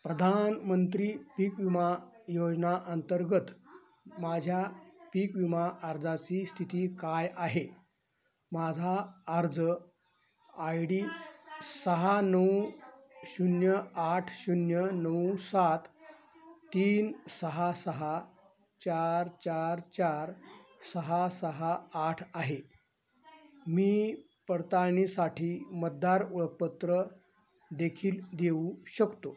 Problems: constant background noise, continuous background conversations, low volume